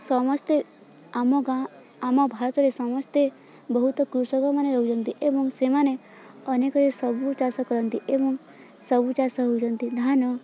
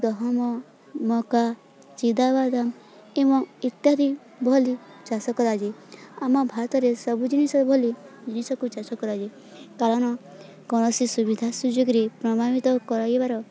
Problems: constant background noise, continuous background conversations